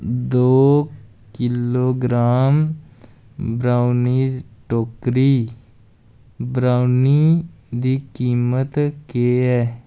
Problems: none marked